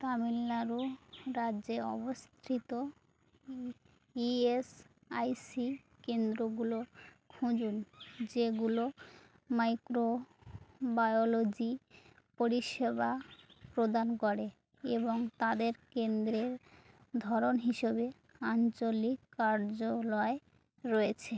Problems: constant background noise